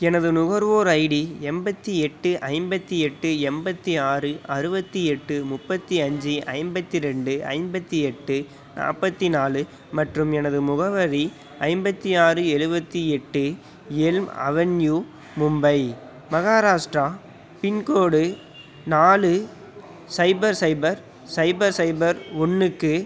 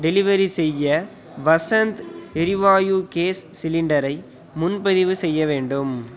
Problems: none marked